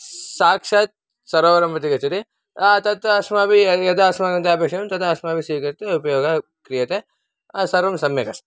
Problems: none marked